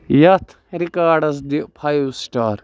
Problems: background sounds at intervals